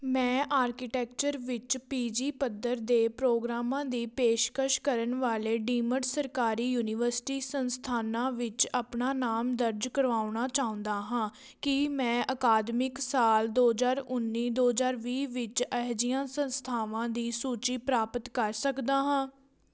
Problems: background conversations at intervals